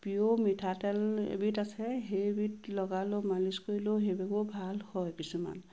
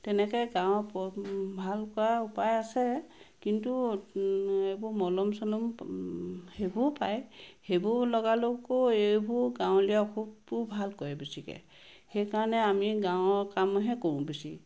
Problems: constant background noise